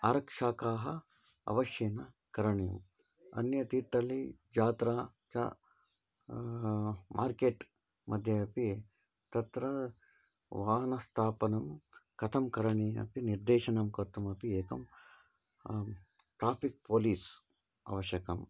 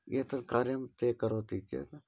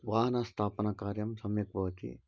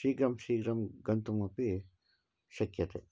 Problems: none marked